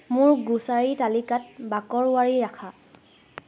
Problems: none marked